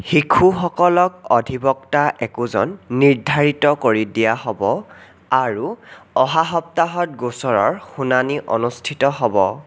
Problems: none marked